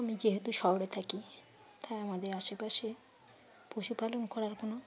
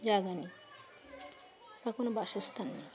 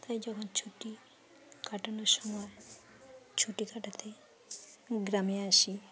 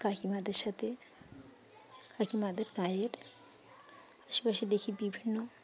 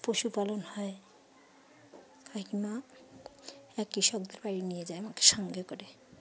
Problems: constant background noise, continuous background conversations